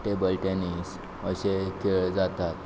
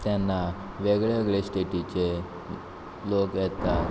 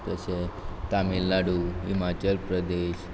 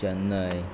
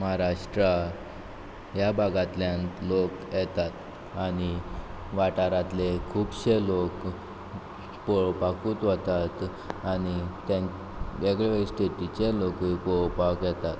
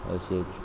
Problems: constant background noise